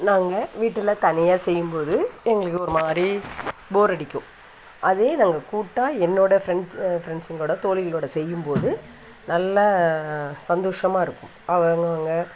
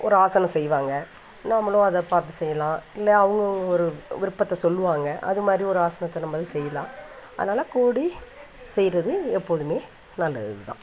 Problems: constant background noise